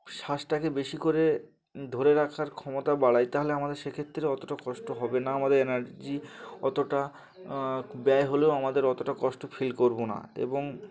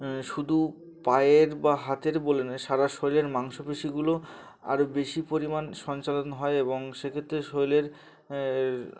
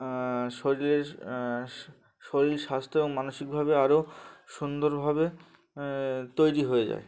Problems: background sounds at intervals, continuous background conversations